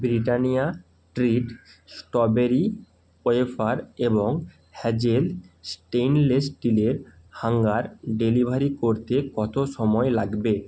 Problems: constant background noise